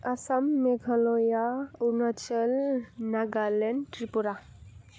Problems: low volume